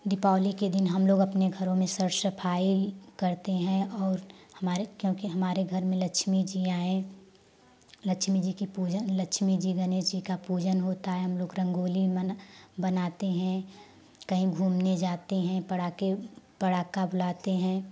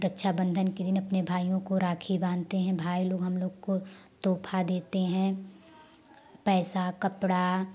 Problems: constant background noise